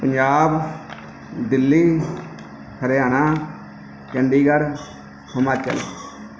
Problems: background sounds at intervals